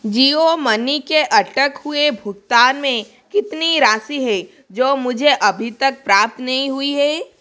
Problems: constant background noise